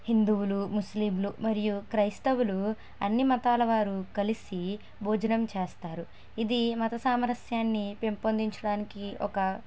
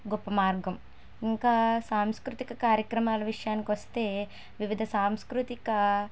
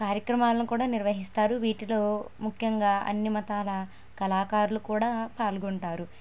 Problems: none marked